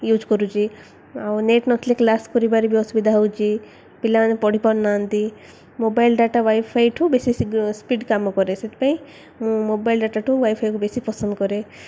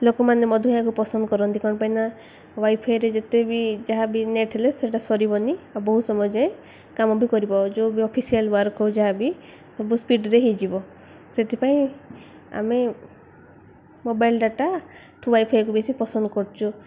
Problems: none marked